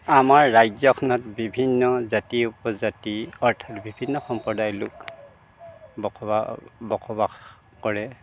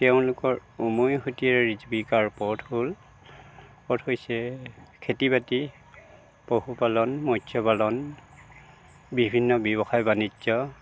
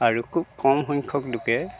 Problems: constant background noise